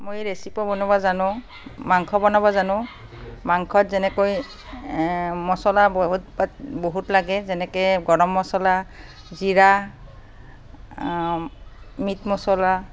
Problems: constant background noise, background conversations at intervals